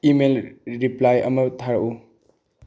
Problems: low volume